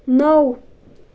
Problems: none marked